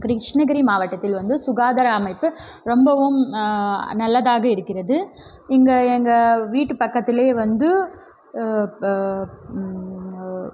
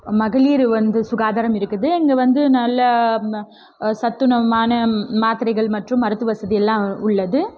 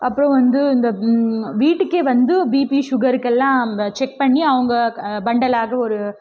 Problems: none marked